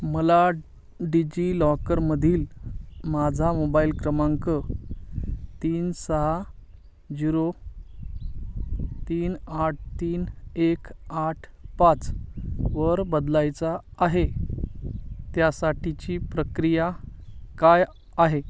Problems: none marked